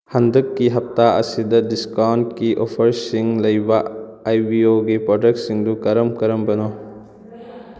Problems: background conversations at intervals